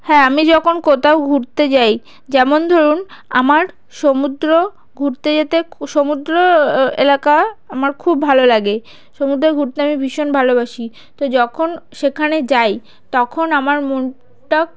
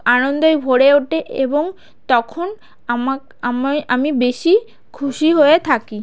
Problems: background sounds at intervals, background conversations at intervals